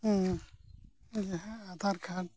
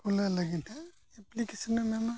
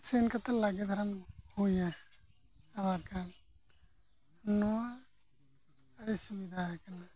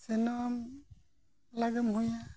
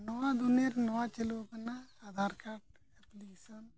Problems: low volume